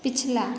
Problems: none marked